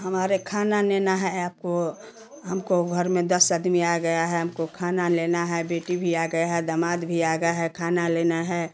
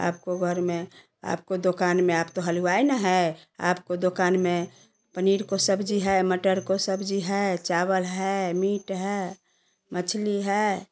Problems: constant background noise